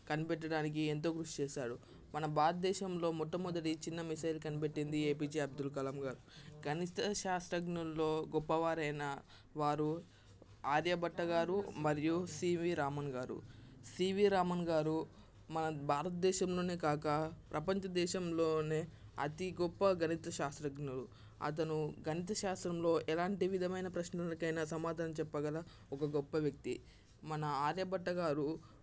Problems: constant background noise, background conversations at intervals